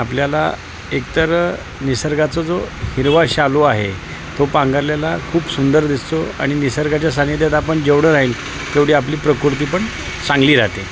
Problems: constant background noise